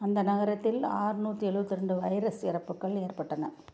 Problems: none marked